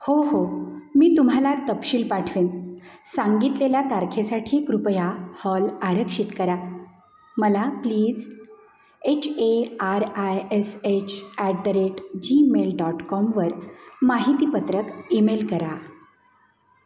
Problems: constant background noise, echo